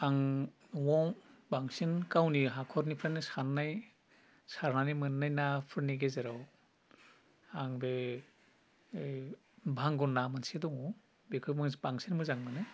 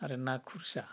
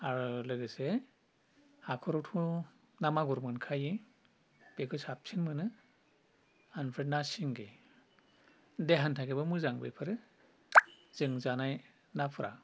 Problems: low volume